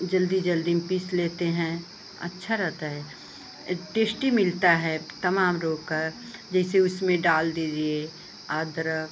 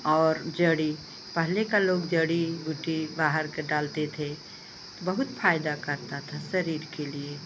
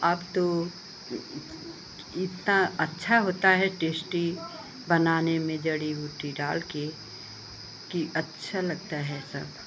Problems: constant background noise